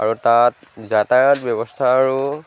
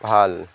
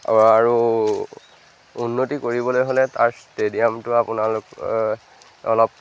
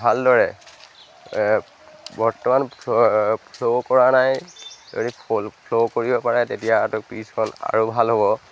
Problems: background sounds at intervals